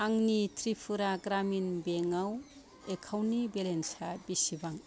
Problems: none marked